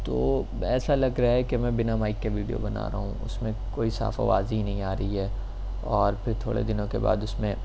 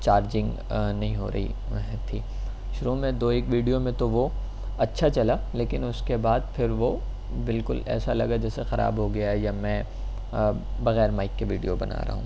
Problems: none marked